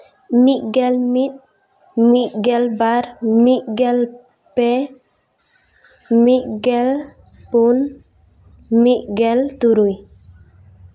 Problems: none marked